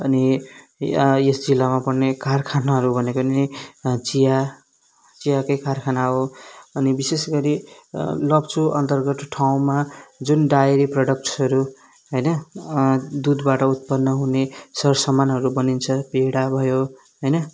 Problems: background sounds at intervals